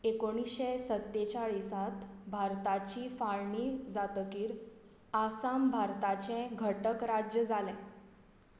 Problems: none marked